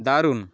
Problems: none marked